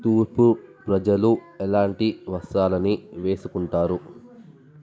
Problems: none marked